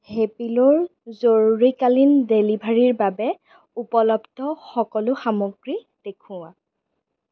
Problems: none marked